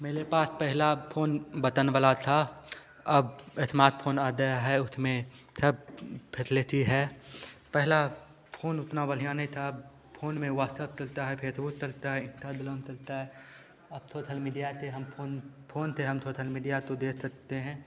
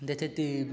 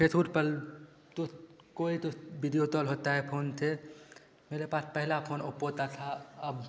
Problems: constant background noise, echo